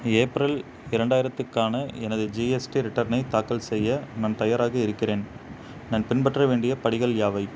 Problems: constant background noise